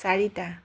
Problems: none marked